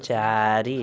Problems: constant background noise, continuous background conversations